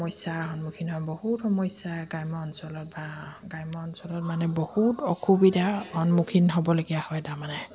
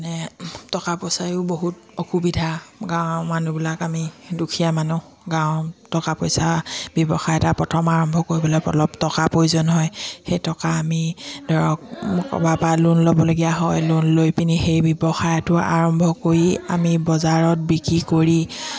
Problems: none marked